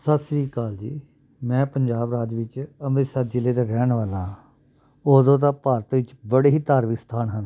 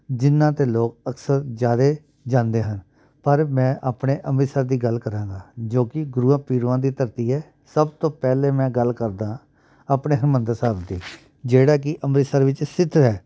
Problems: background sounds at intervals